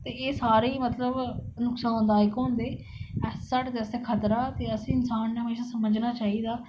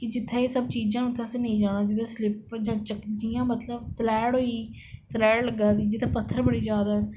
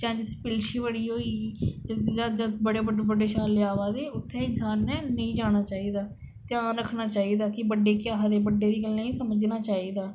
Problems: none marked